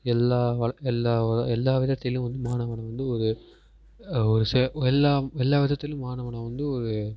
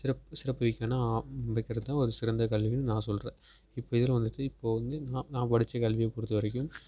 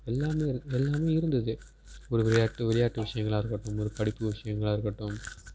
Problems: background sounds at intervals